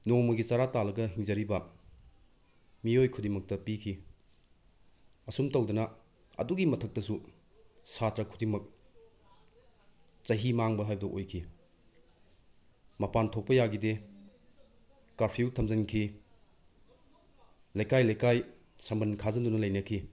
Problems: none marked